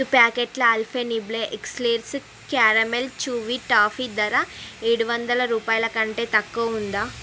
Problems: none marked